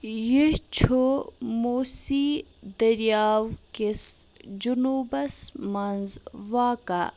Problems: background sounds at intervals